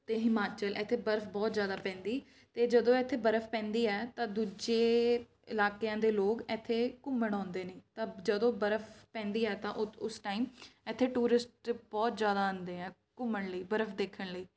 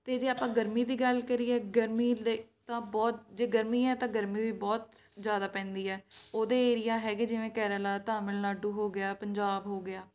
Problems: background sounds at intervals